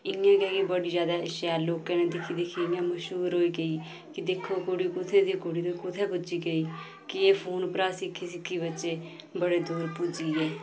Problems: constant background noise